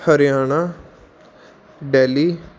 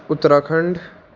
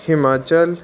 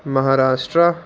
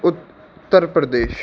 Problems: constant background noise